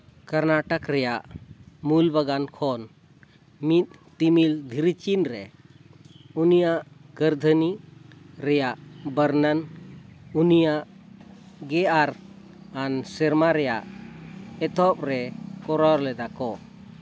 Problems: constant background noise